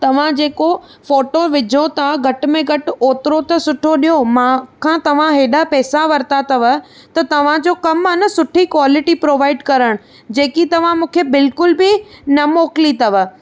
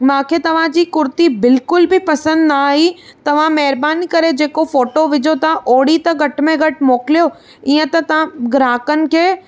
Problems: none marked